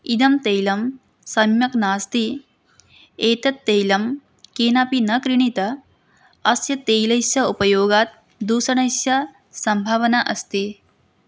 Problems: background conversations at intervals